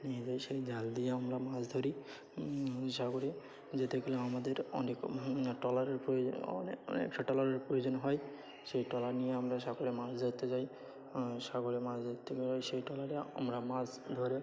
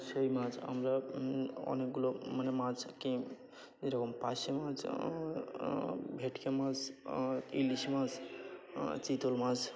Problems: constant background noise, continuous background conversations